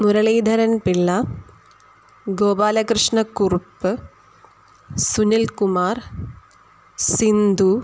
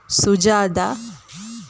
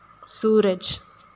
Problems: background sounds at intervals